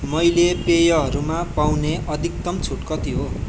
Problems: continuous background conversations